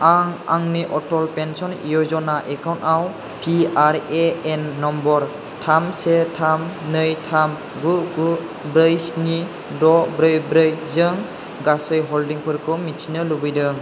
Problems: constant background noise